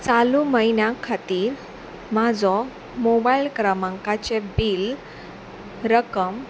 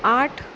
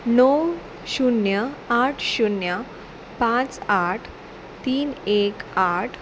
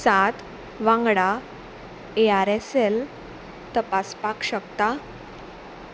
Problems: none marked